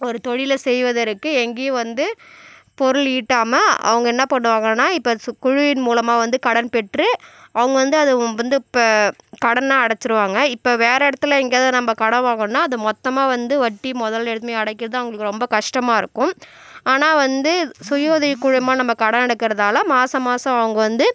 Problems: none marked